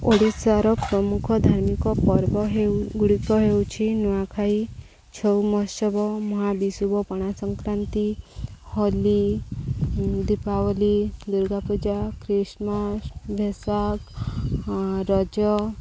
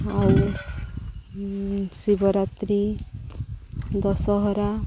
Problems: low volume